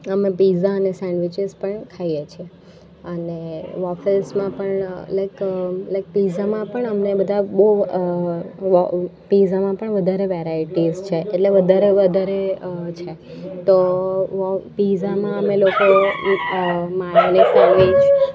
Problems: constant background noise